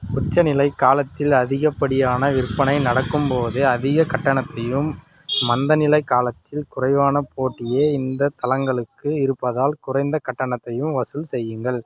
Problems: constant background noise